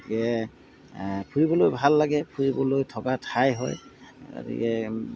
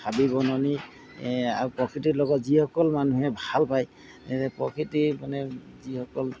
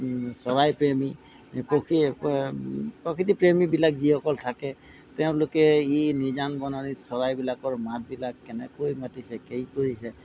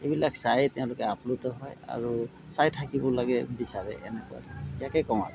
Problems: background sounds at intervals